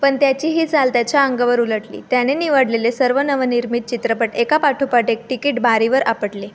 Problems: none marked